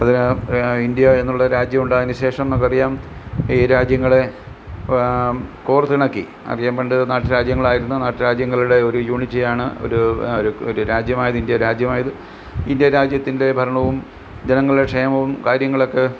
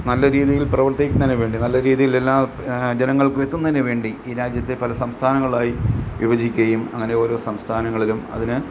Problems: background sounds at intervals